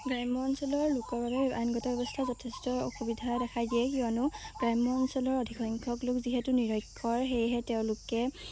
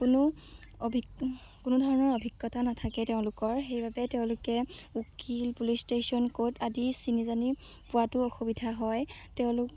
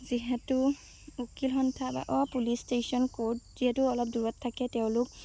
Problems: low volume